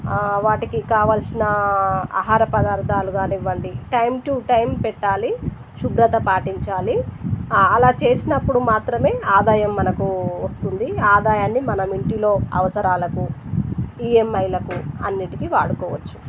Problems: constant background noise